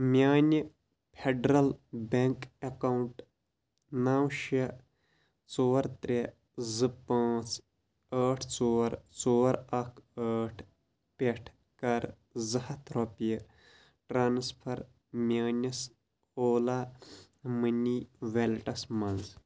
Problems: constant background noise